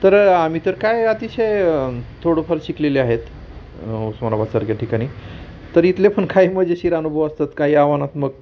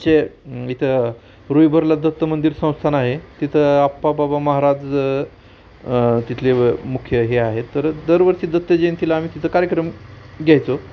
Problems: constant background noise, background conversations at intervals